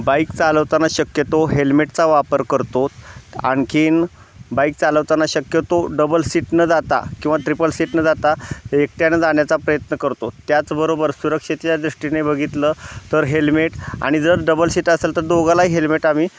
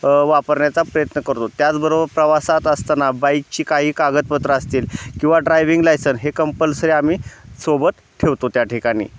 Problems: constant background noise